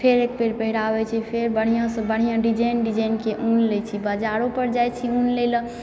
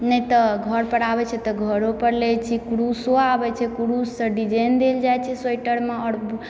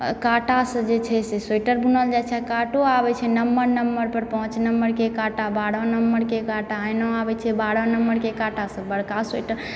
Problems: background sounds at intervals